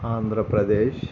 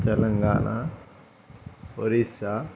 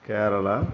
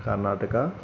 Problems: none marked